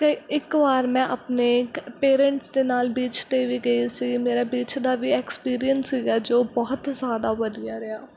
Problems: none marked